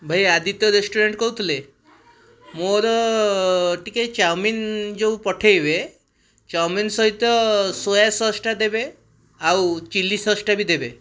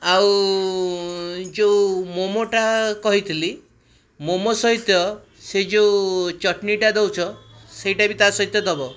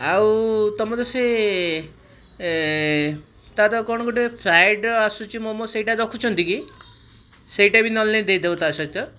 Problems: none marked